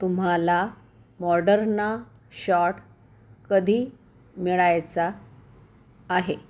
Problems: none marked